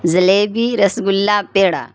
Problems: none marked